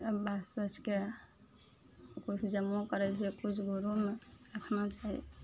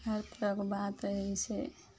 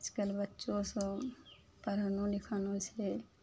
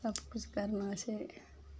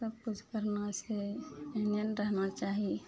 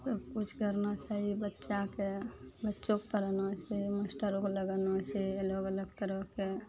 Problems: none marked